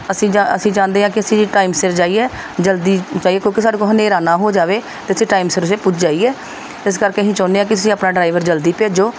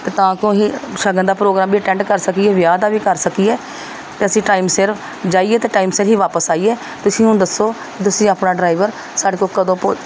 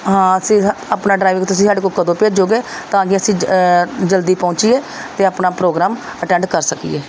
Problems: none marked